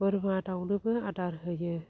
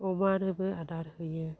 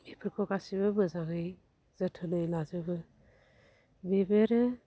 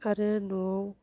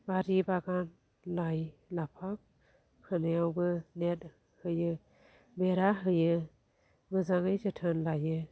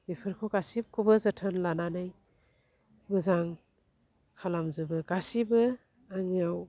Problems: low volume